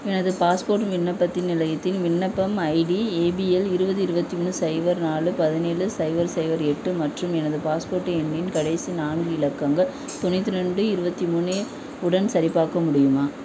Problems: constant background noise